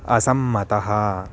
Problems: constant background noise